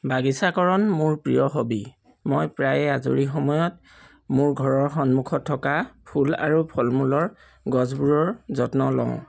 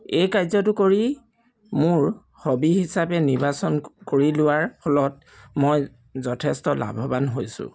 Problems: background sounds at intervals